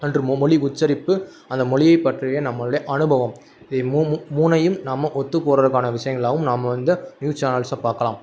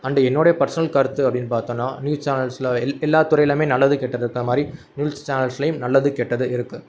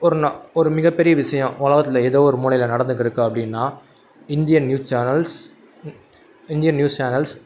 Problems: constant background noise